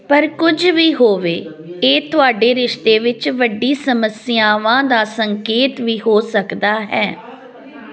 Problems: continuous background conversations